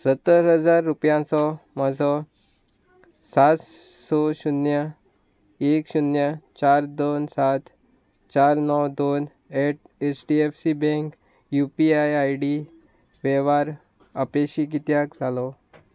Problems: none marked